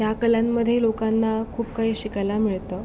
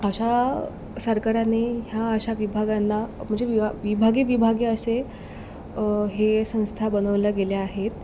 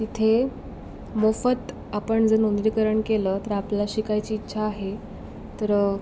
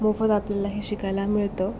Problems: constant background noise